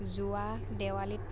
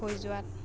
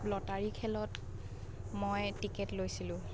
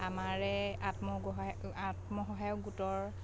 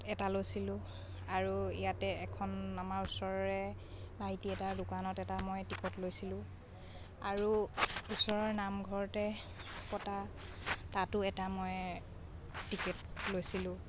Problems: background sounds at intervals, background conversations at intervals